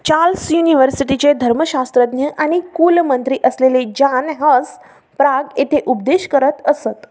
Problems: background sounds at intervals